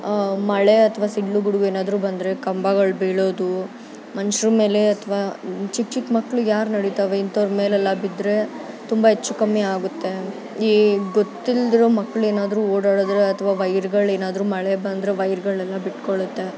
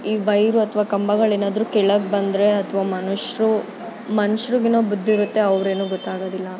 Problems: background sounds at intervals